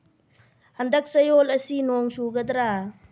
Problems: low volume